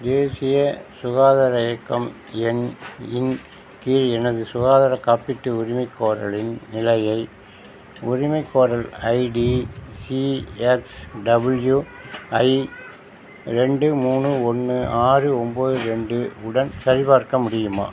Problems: constant background noise, background conversations at intervals